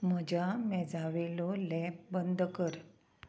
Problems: constant background noise